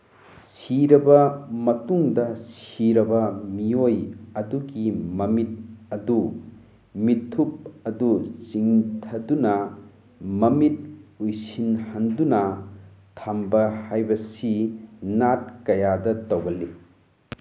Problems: background sounds at intervals